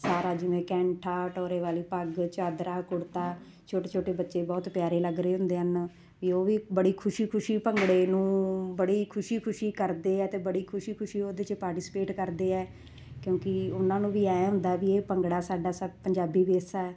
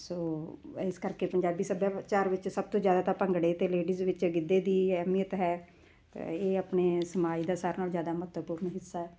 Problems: constant background noise